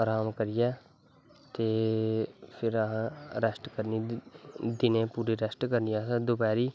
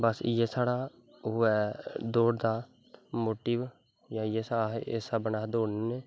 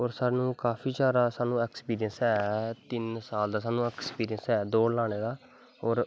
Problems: background sounds at intervals